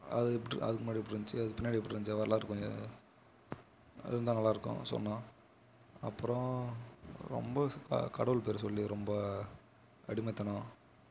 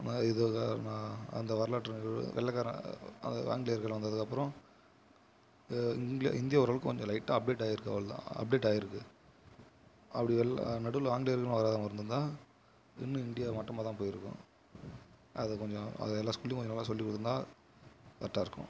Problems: constant background noise